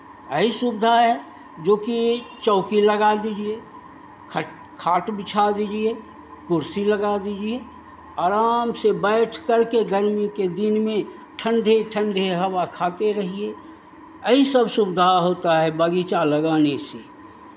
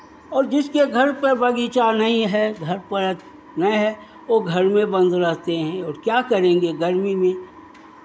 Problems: constant background noise